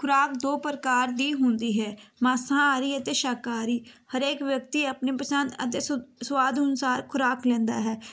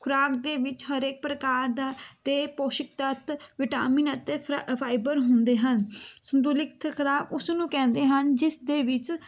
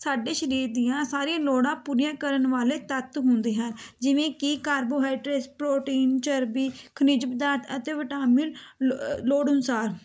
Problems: background sounds at intervals